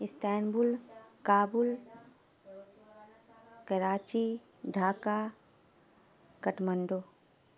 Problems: background sounds at intervals